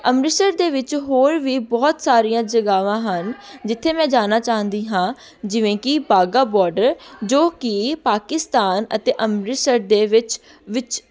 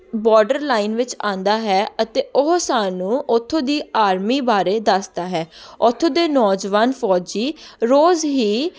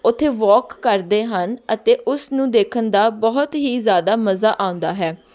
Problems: background sounds at intervals, continuous background conversations